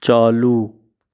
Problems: background sounds at intervals